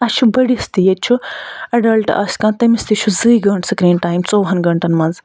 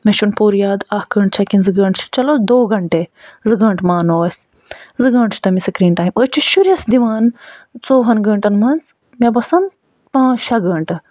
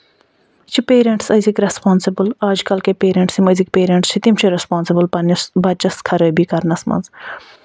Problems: none marked